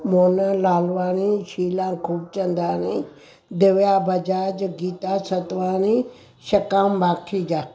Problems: constant background noise